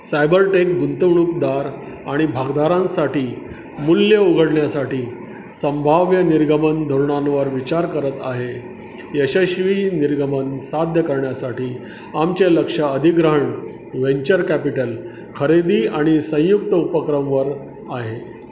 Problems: constant background noise, background conversations at intervals